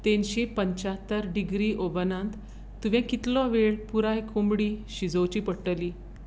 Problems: constant background noise